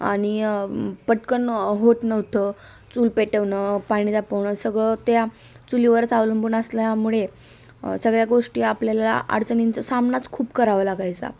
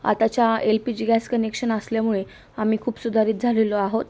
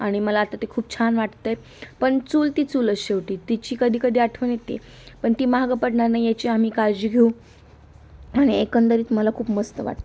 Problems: background sounds at intervals